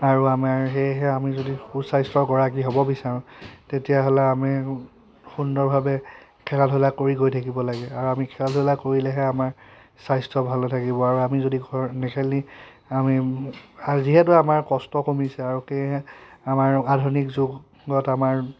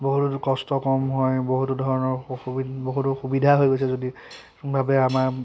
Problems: constant background noise